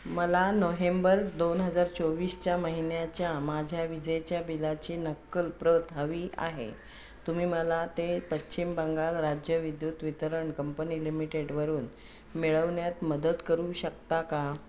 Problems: background sounds at intervals